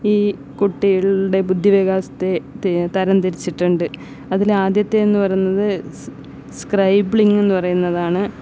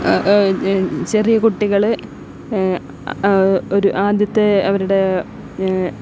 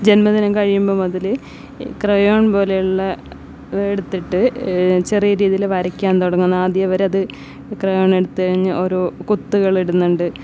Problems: background sounds at intervals